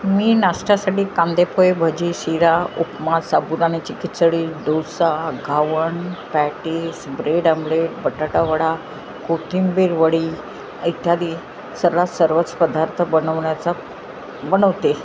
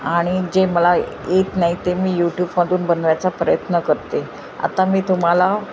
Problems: constant background noise